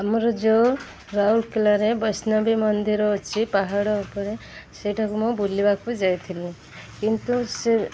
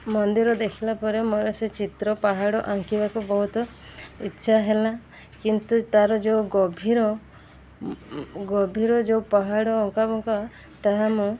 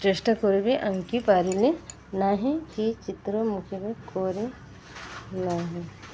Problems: constant background noise